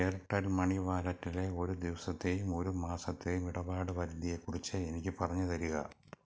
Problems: low volume